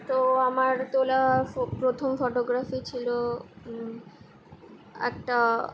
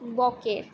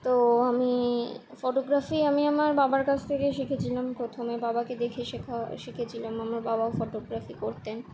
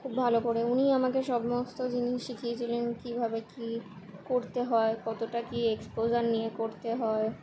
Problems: constant background noise